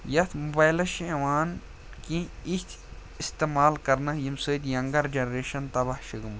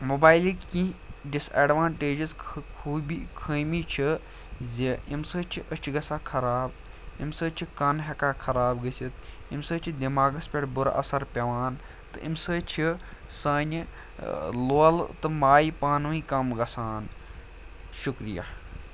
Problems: none marked